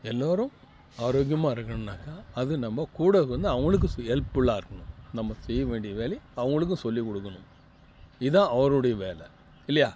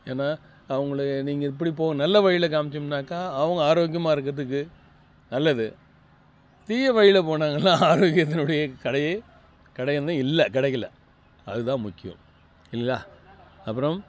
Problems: constant background noise, low volume